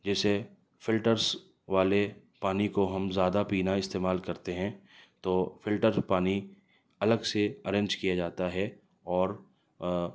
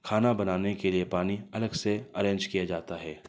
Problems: none marked